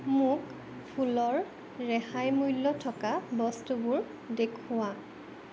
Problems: background sounds at intervals